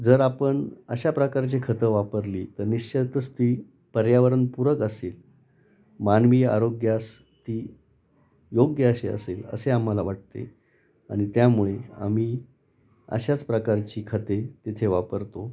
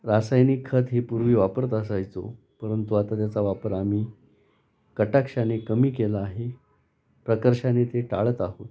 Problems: constant background noise, background conversations at intervals